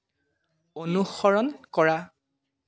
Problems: background sounds at intervals